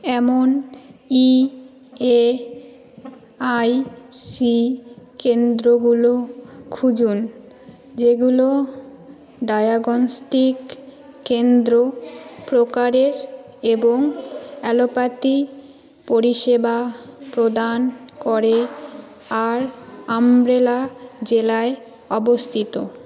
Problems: constant background noise, background conversations at intervals